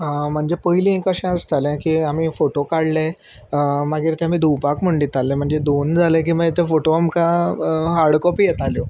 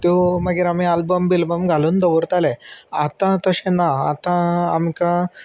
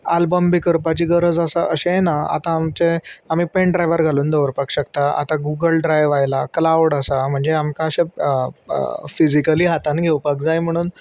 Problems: constant background noise